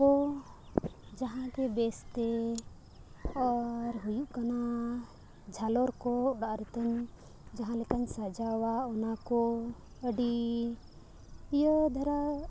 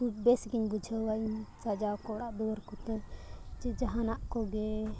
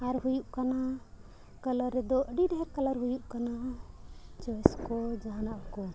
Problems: background sounds at intervals, low volume